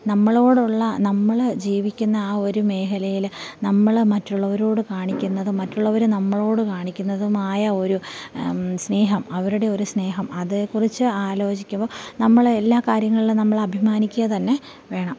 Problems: none marked